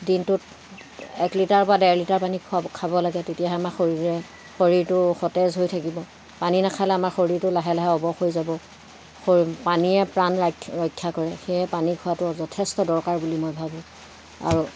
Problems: constant background noise, background conversations at intervals